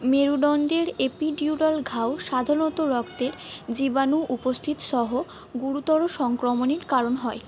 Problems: background sounds at intervals